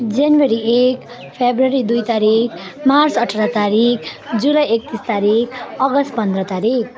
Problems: constant background noise, continuous background conversations